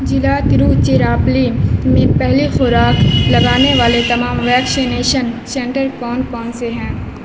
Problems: constant background noise